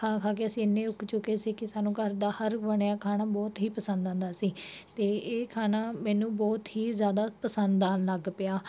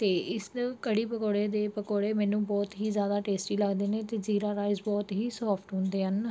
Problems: background sounds at intervals